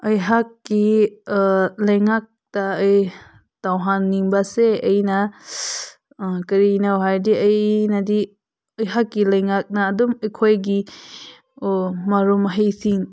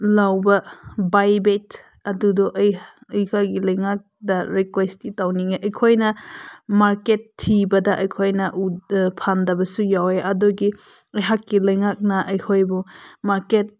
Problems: none marked